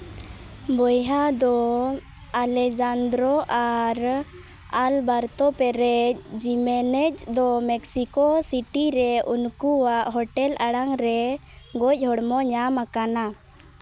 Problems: background sounds at intervals